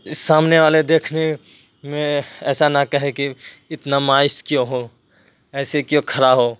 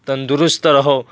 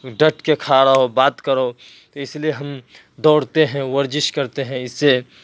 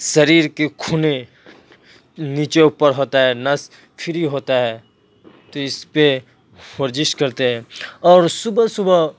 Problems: constant background noise